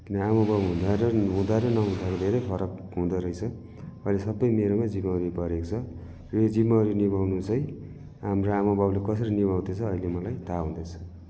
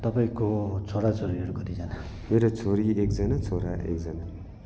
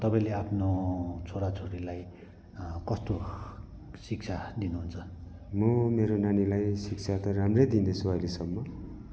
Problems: none marked